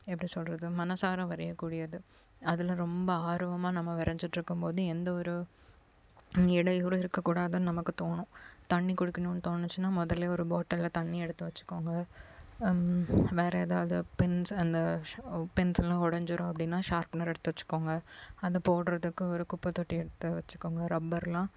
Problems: none marked